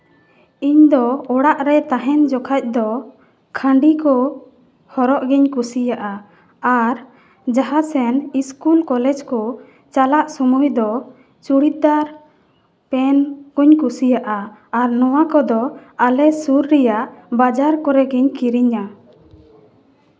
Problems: background sounds at intervals, background conversations at intervals, echo